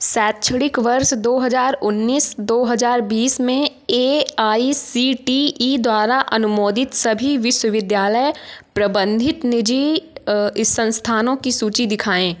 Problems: constant background noise